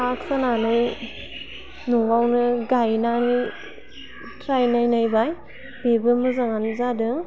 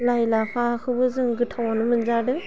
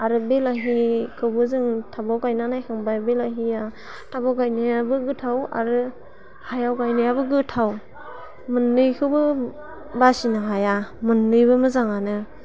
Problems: constant background noise